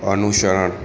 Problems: background conversations at intervals